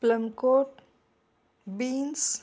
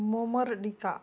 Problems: background sounds at intervals